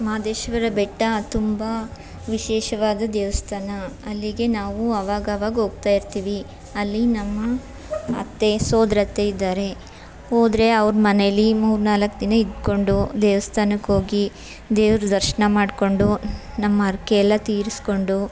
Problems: background conversations at intervals